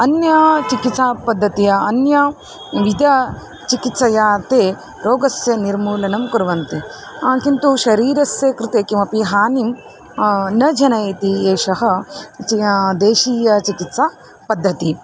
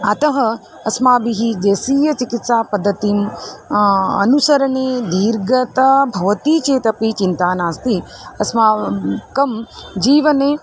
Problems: constant background noise, background conversations at intervals